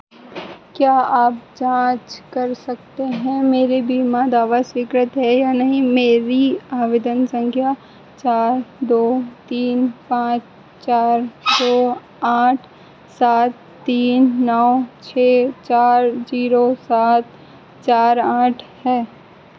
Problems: constant background noise